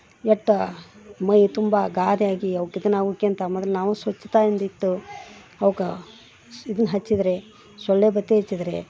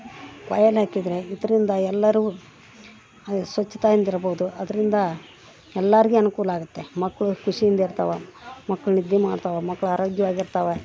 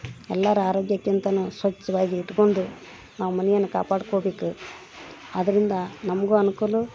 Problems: background sounds at intervals